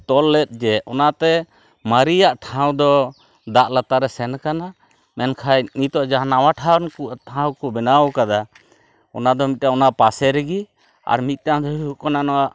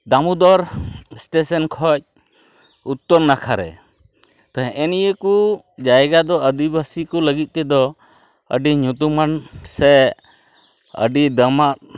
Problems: none marked